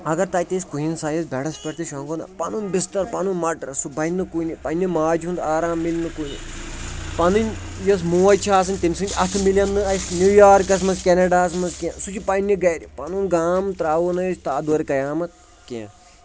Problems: background sounds at intervals, background conversations at intervals